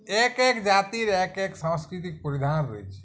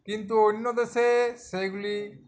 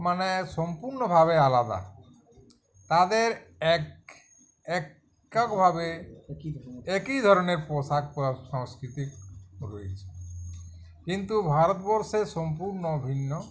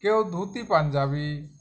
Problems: background conversations at intervals